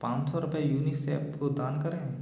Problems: background sounds at intervals